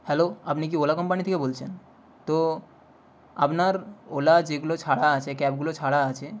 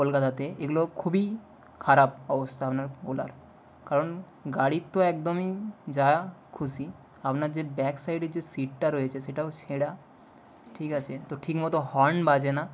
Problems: constant background noise